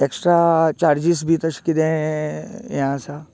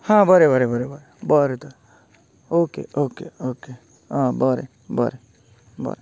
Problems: continuous background conversations